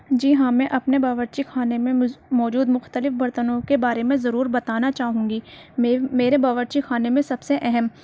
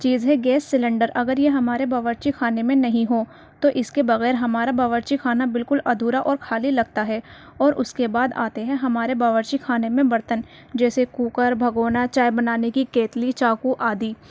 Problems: background sounds at intervals